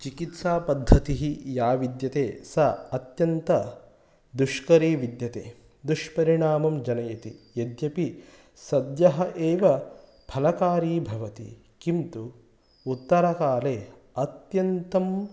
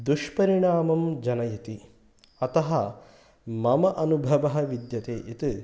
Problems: none marked